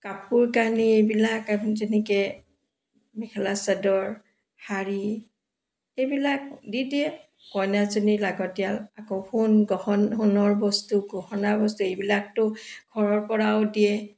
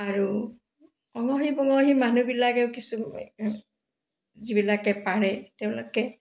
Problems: background sounds at intervals